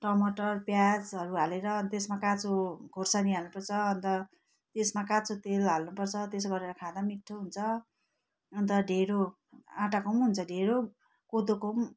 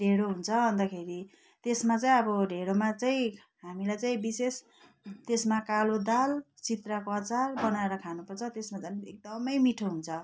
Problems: constant background noise